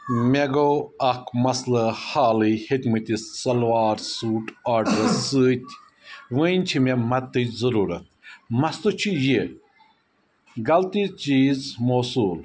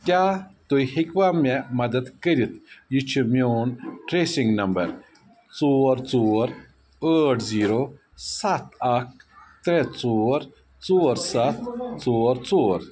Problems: constant background noise